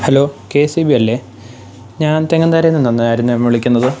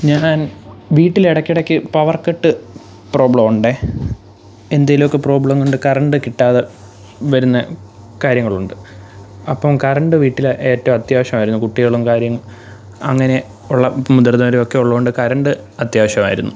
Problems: background sounds at intervals